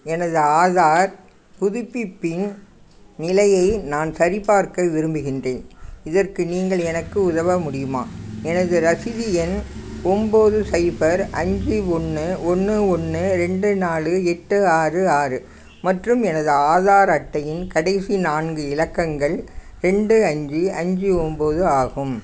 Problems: none marked